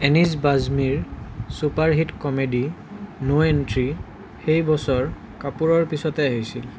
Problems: none marked